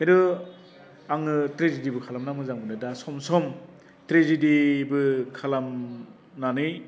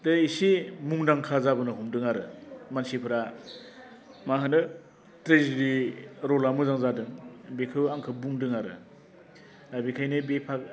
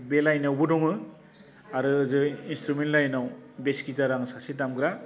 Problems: constant background noise